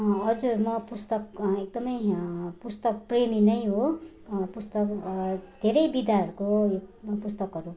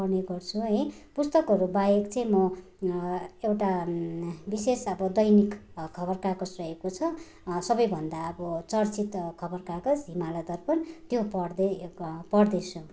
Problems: none marked